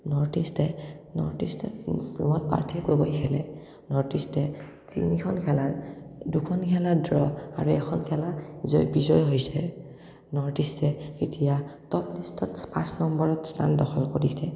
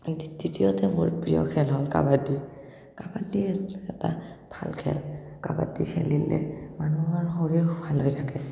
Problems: none marked